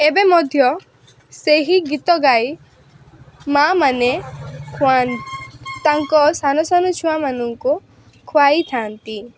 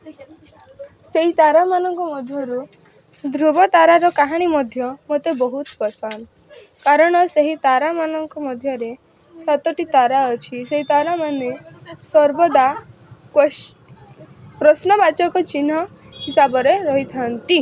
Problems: constant background noise